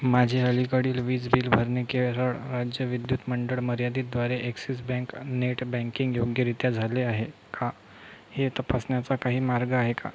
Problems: none marked